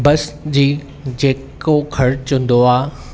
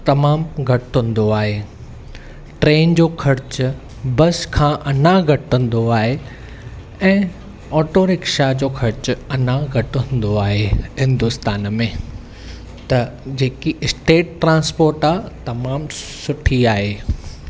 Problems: none marked